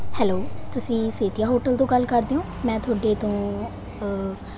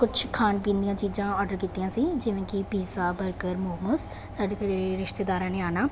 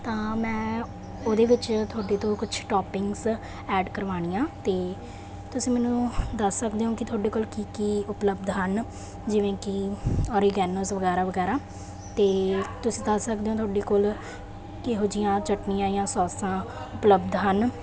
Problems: none marked